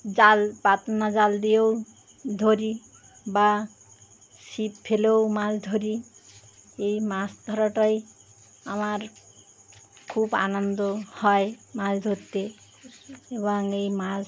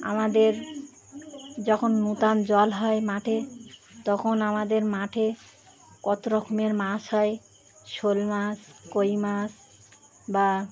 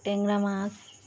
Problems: constant background noise